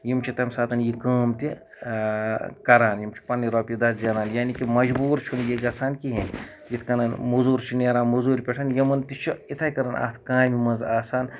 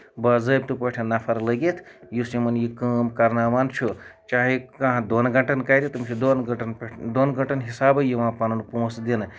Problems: background sounds at intervals